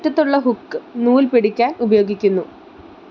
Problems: constant background noise